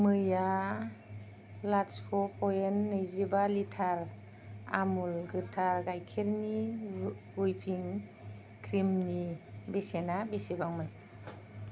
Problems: low volume